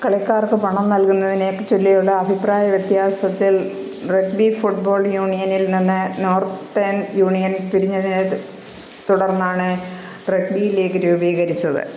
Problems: constant background noise